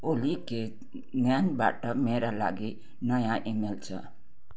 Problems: none marked